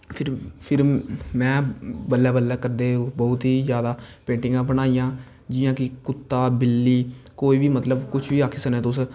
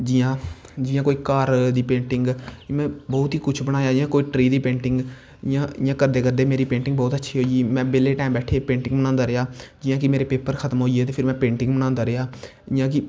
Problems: constant background noise